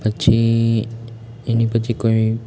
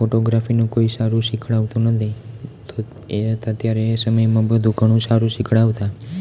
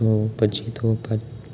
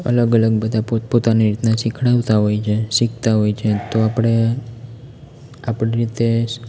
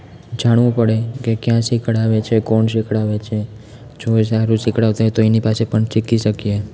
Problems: constant background noise